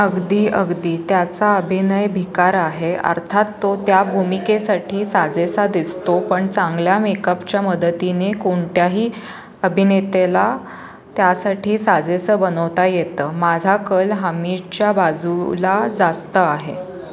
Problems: constant background noise, background conversations at intervals